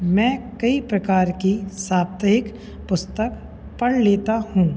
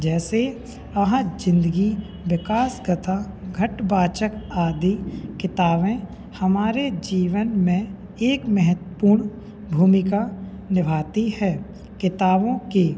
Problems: constant background noise, background conversations at intervals